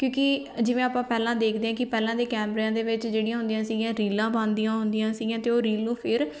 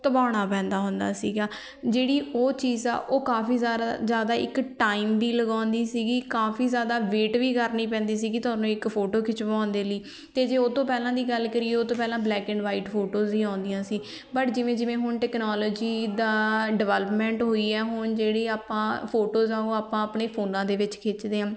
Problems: none marked